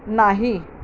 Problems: constant background noise